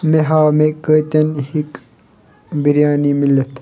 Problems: background sounds at intervals